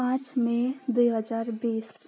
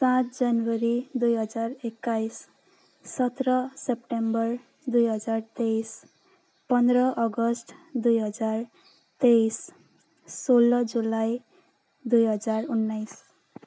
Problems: none marked